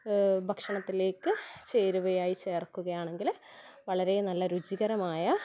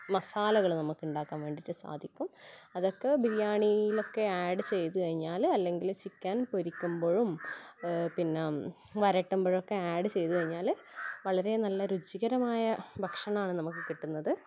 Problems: background sounds at intervals